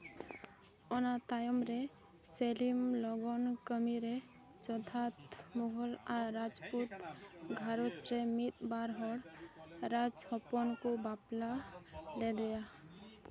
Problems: background sounds at intervals, background conversations at intervals